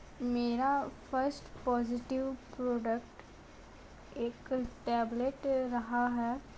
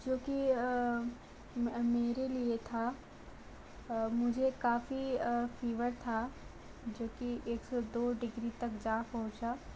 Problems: constant background noise, low volume